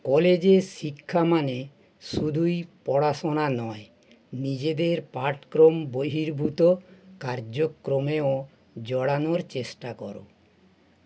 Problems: none marked